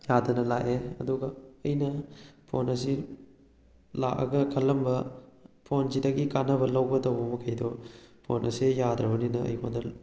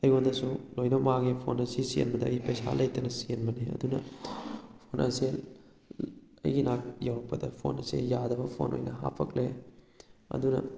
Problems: none marked